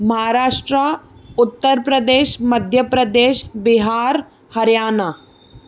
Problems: none marked